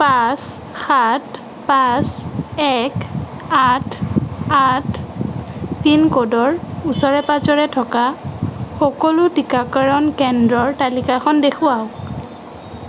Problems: none marked